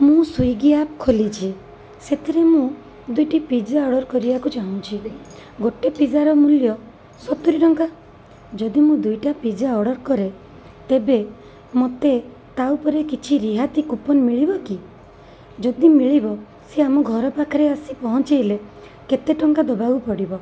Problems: constant background noise, background conversations at intervals